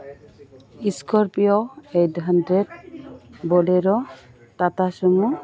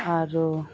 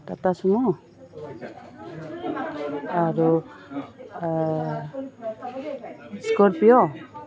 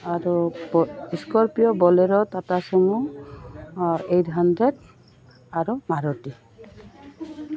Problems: background conversations at intervals